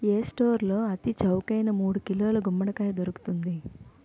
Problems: none marked